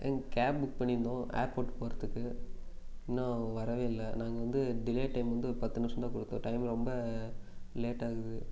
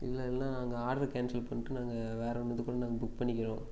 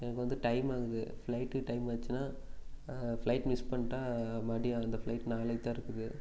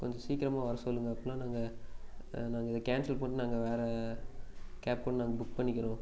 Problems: background sounds at intervals